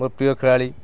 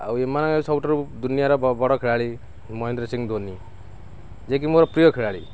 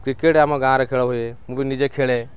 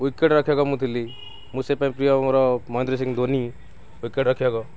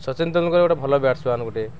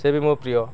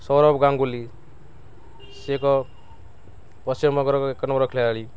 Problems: constant background noise, background conversations at intervals